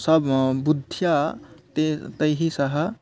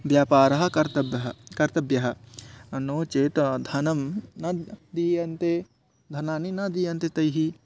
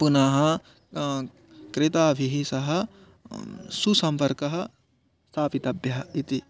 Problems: background sounds at intervals, background conversations at intervals